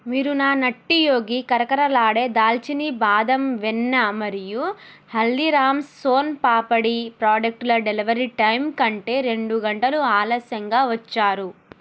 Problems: none marked